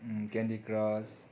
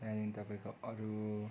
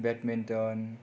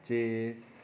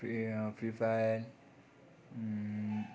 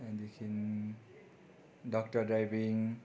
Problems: none marked